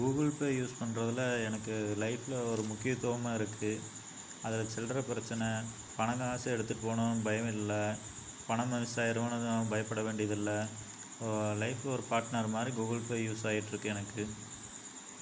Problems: constant background noise